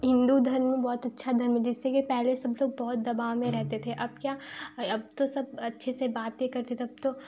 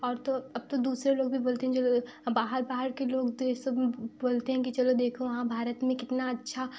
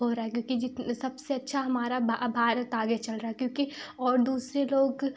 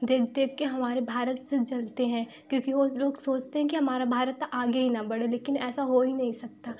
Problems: background sounds at intervals